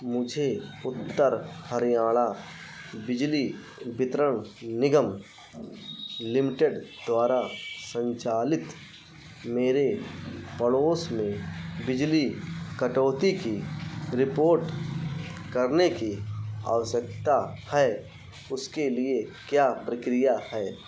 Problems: constant background noise